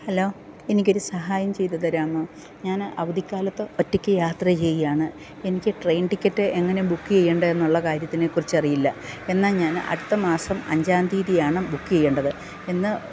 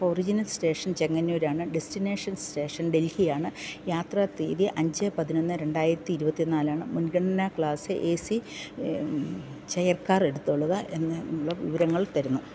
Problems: none marked